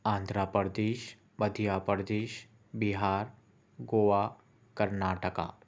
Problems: constant background noise